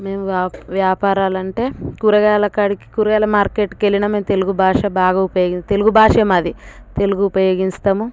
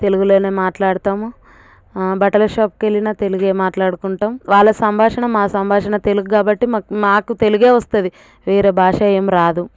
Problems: none marked